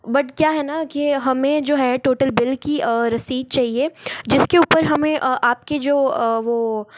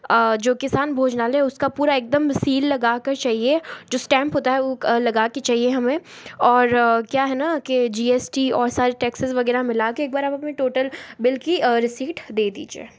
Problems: none marked